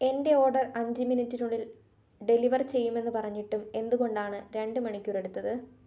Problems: none marked